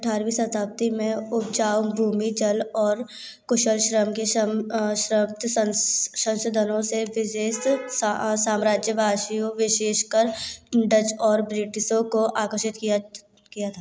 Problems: constant background noise